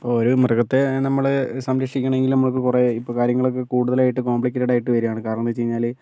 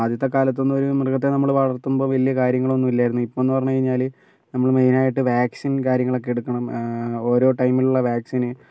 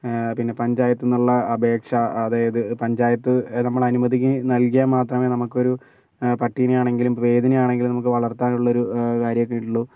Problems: none marked